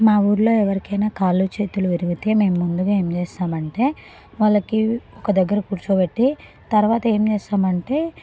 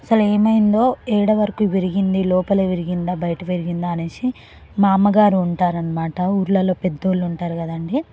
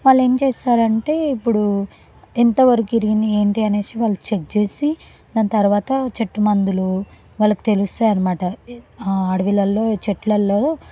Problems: background sounds at intervals